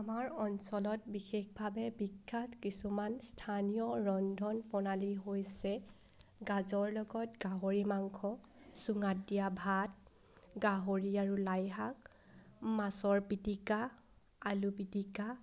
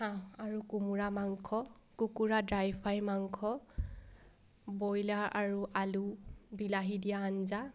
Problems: none marked